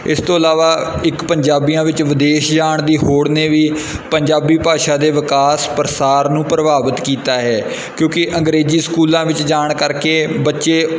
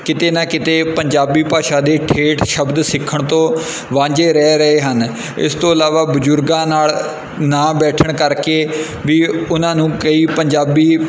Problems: none marked